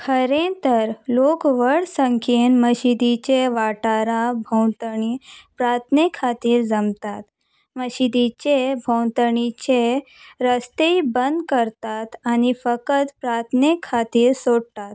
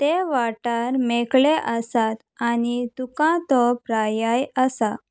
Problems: background sounds at intervals